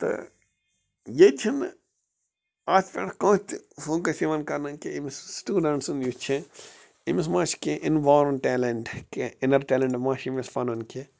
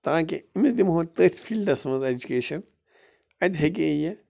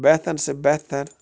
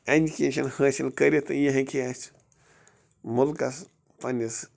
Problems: constant background noise